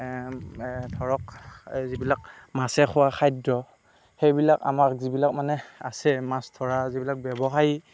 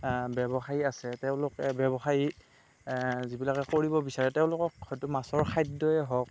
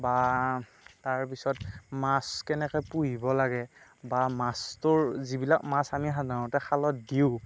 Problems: none marked